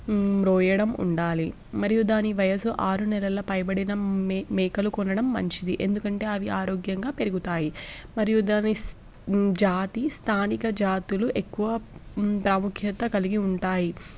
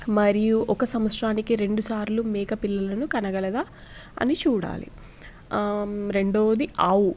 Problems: none marked